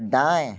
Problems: background sounds at intervals, background conversations at intervals